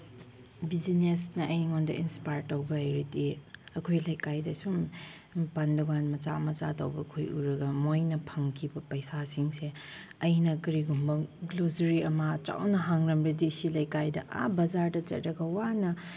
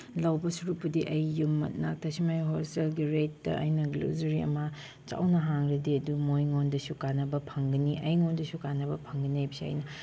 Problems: background sounds at intervals